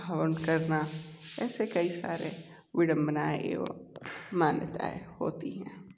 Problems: constant background noise, low volume